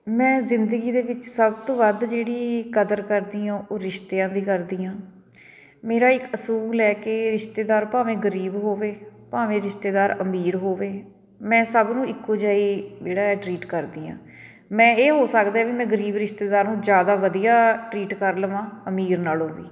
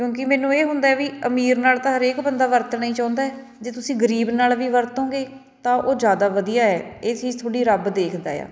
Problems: none marked